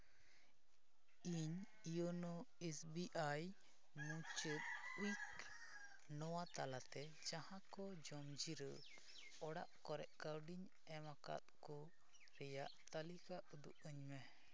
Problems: constant background noise